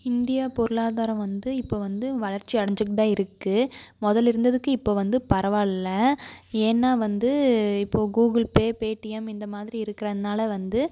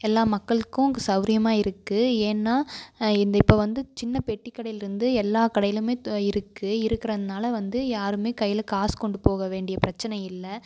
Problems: constant background noise